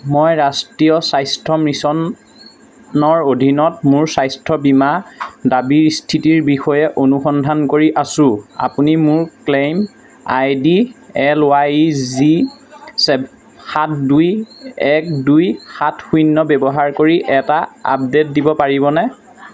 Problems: none marked